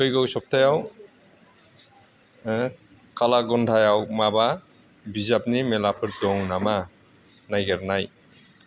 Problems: constant background noise